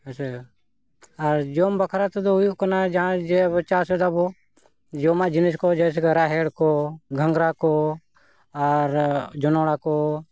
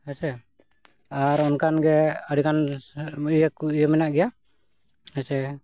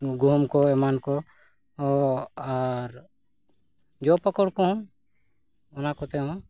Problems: none marked